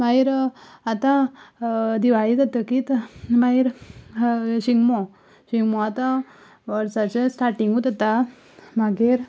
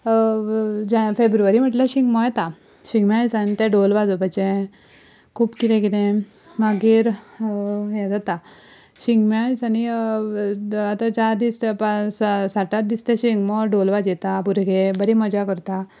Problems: background sounds at intervals